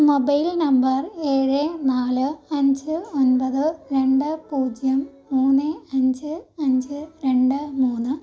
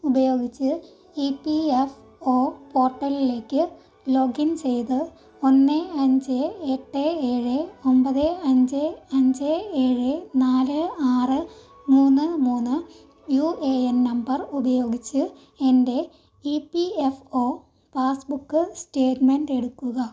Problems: none marked